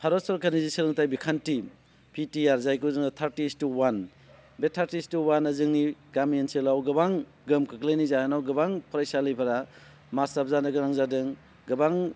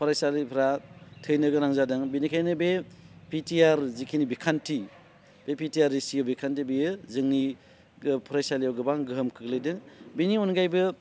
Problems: none marked